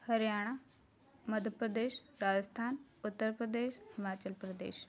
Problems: background conversations at intervals